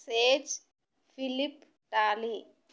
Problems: none marked